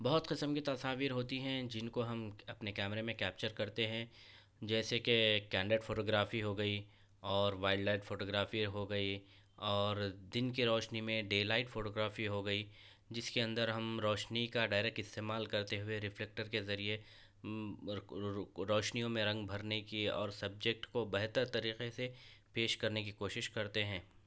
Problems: none marked